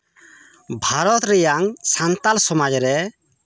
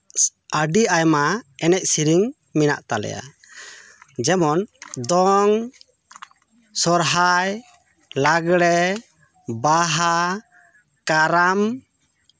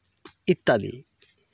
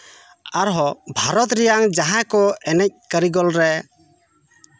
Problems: continuous background conversations